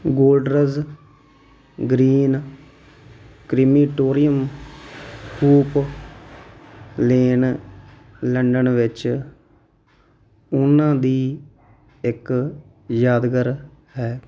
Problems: background sounds at intervals